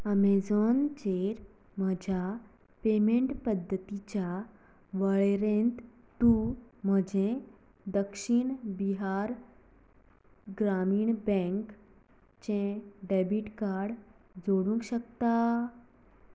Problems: background sounds at intervals, low volume